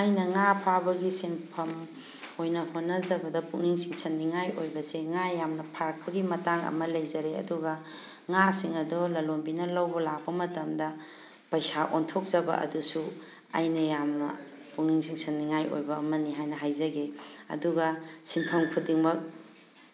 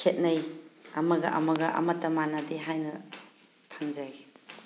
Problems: background sounds at intervals